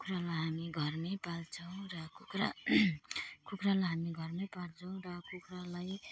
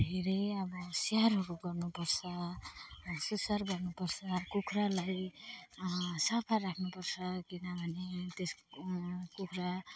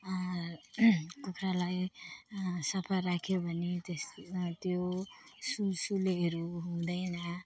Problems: background sounds at intervals, background conversations at intervals